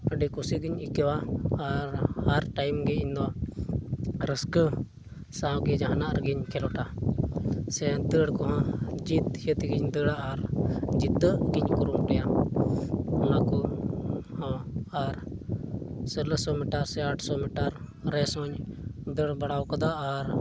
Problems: constant background noise